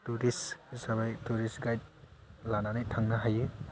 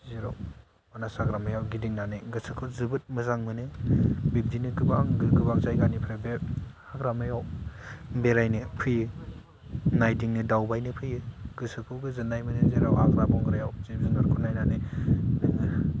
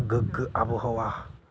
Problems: low volume